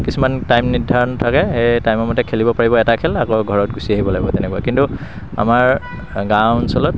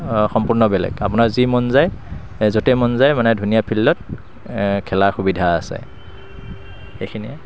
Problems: constant background noise